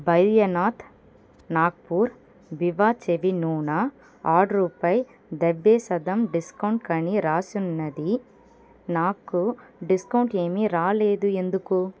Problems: constant background noise